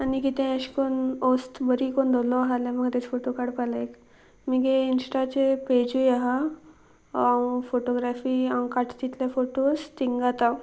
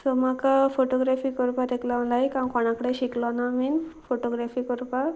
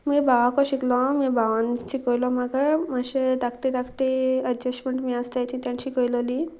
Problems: constant background noise